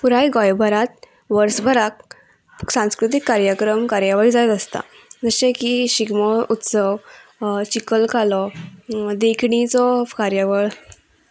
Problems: none marked